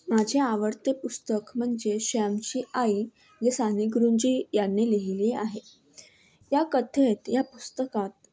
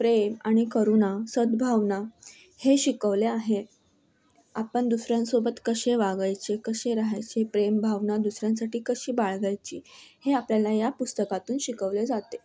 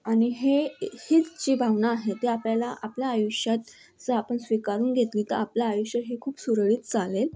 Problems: none marked